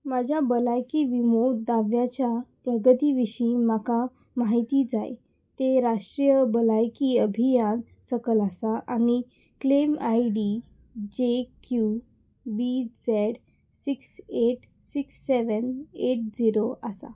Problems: none marked